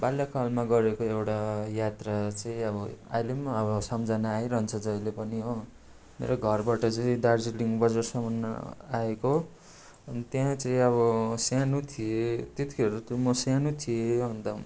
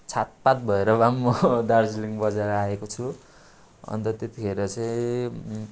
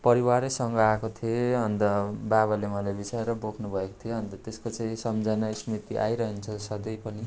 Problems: constant background noise